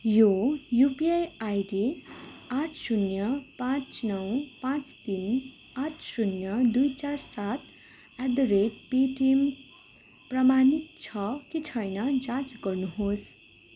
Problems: constant background noise